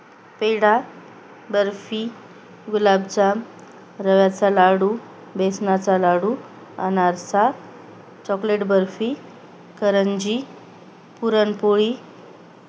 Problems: none marked